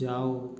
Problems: low volume